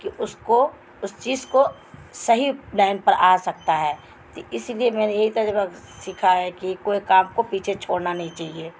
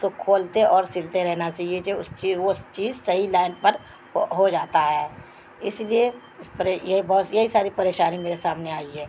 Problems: constant background noise